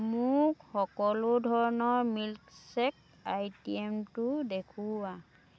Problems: continuous background conversations